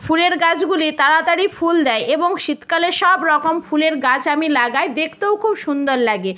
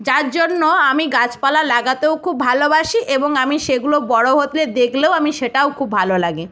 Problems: none marked